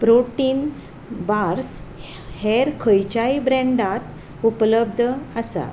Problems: constant background noise